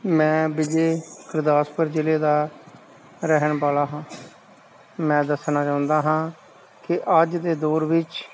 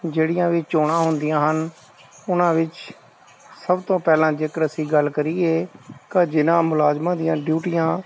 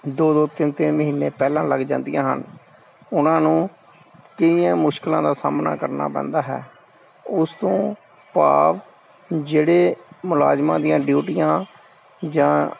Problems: none marked